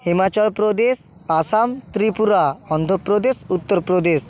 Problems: background sounds at intervals